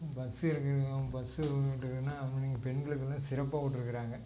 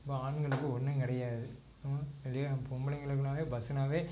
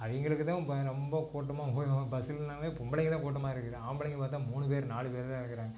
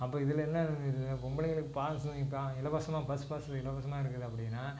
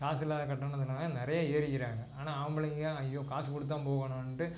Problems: constant background noise